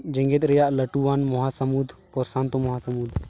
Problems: none marked